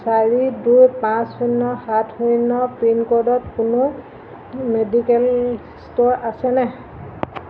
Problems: constant background noise